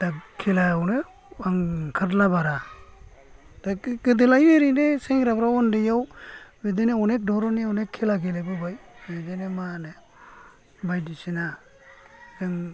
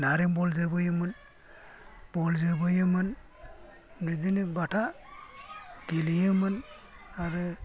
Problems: low volume